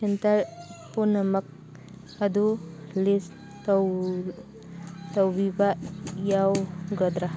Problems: background sounds at intervals